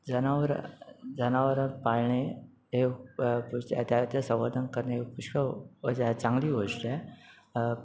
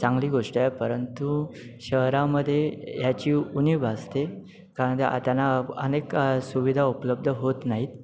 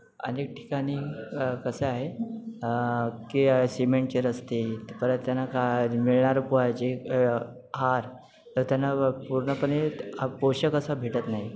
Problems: none marked